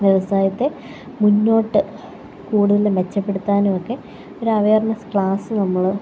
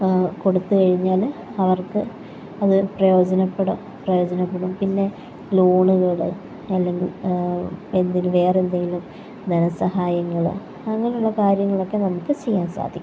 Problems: constant background noise